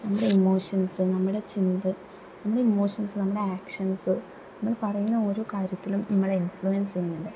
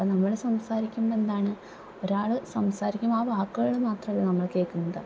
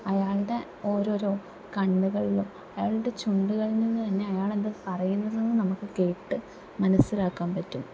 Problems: low volume